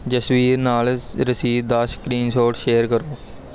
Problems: background sounds at intervals